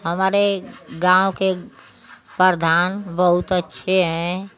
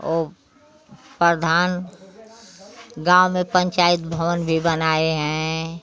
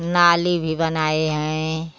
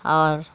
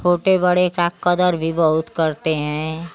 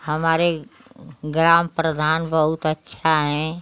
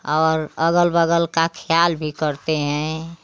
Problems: constant background noise